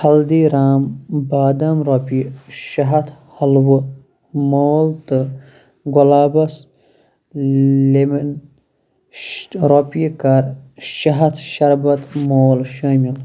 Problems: constant background noise